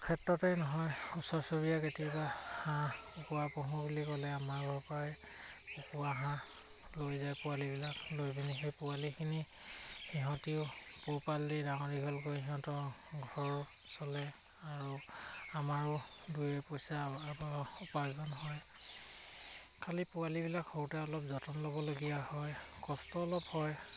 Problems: constant background noise